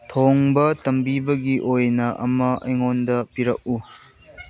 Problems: background sounds at intervals